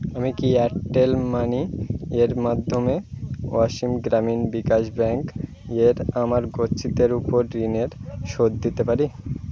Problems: constant background noise